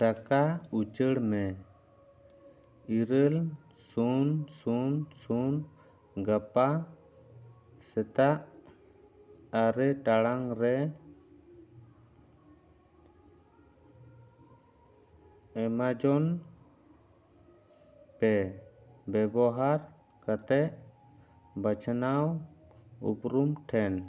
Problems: background sounds at intervals